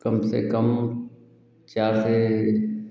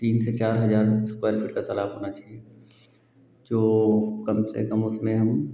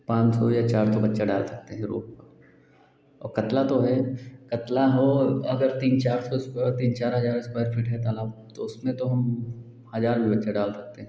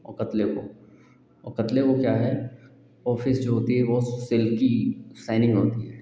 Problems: constant background noise